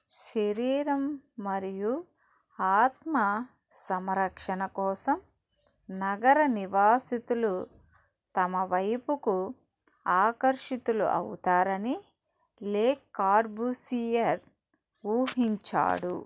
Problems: background sounds at intervals